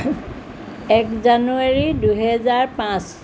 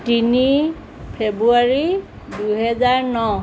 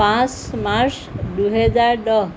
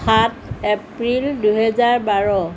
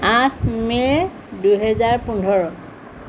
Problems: background sounds at intervals